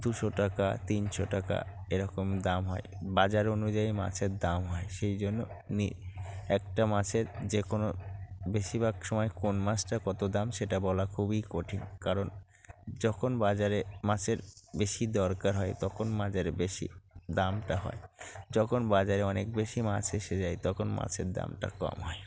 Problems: constant background noise